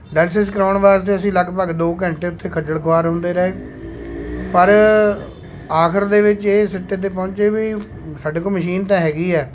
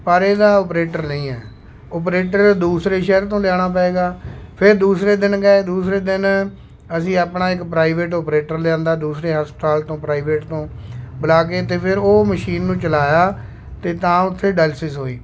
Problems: constant background noise